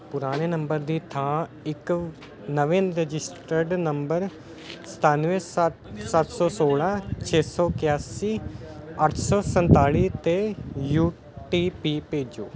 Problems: continuous background conversations